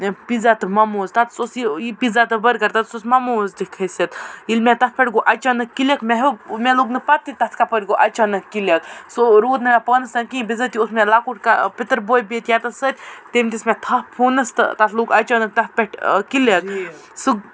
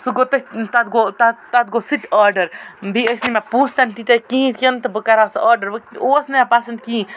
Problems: none marked